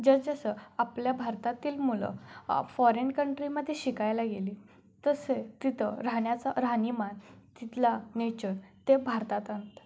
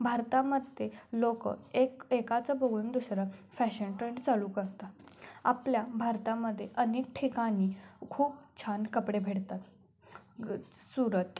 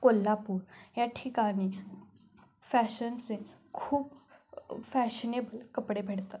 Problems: none marked